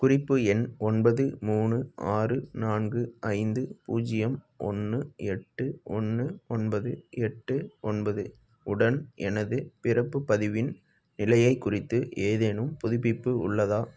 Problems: none marked